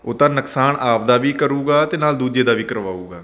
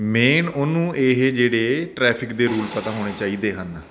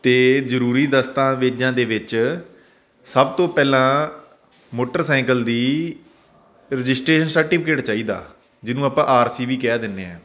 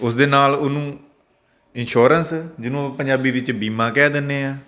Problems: none marked